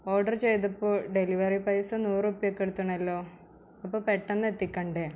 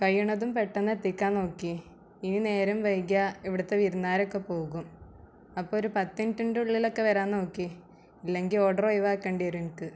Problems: low volume